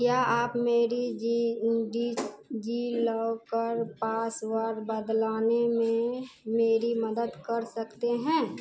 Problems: constant background noise